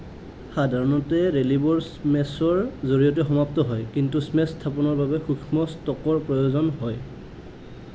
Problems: none marked